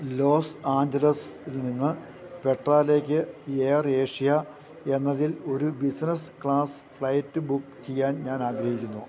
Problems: none marked